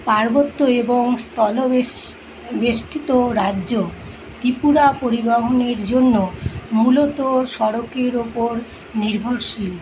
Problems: constant background noise